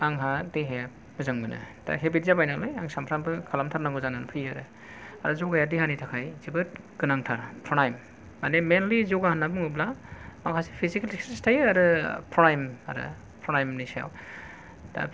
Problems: none marked